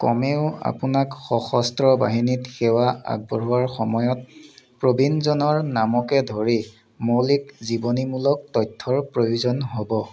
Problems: background sounds at intervals